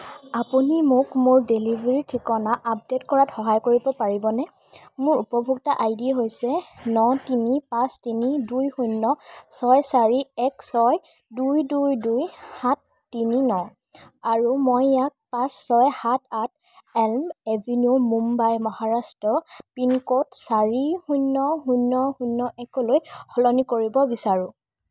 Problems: none marked